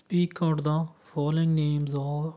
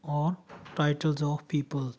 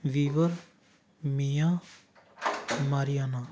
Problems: none marked